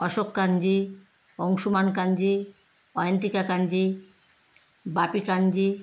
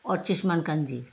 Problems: none marked